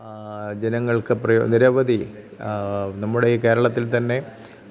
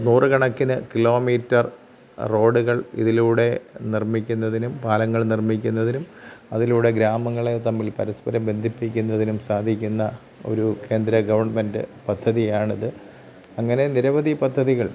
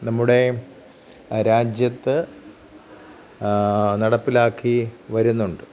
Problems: background sounds at intervals, low volume